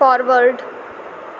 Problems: constant background noise